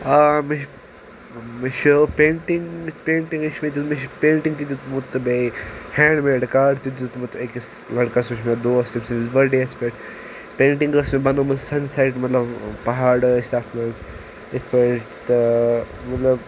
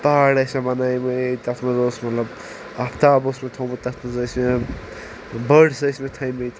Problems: constant background noise